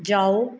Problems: background sounds at intervals